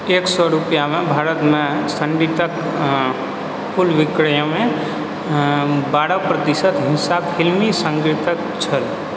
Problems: constant background noise